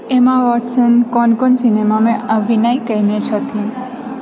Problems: background conversations at intervals